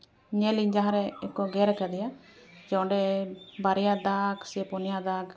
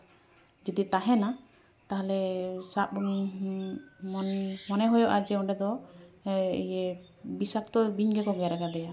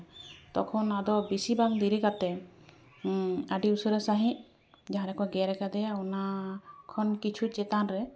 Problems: background conversations at intervals